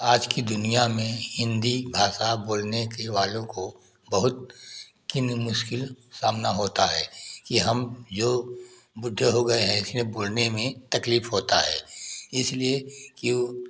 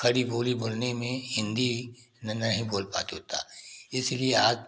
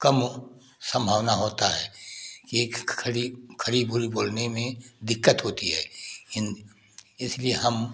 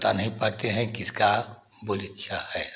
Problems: constant background noise